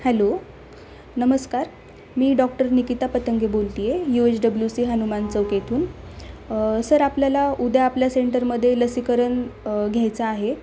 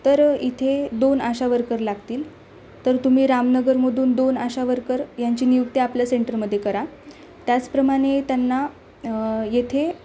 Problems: constant background noise